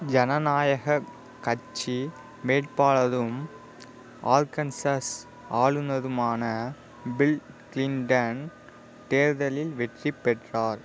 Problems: none marked